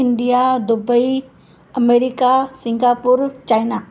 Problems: constant background noise, echo